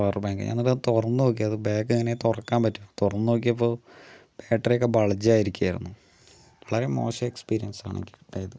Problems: low volume